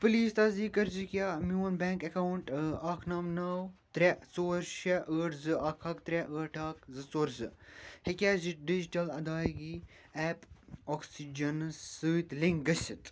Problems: none marked